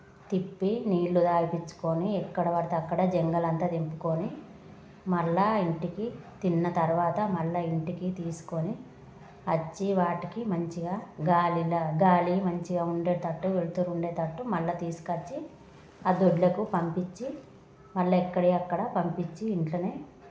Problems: constant background noise, background conversations at intervals